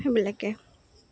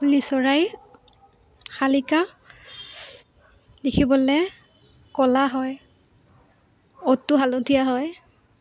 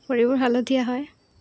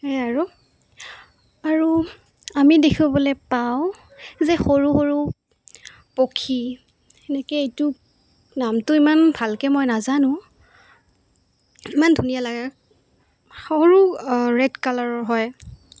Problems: constant background noise